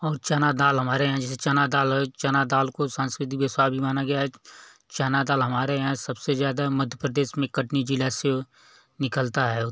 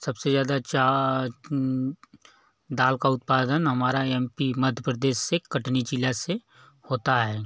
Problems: none marked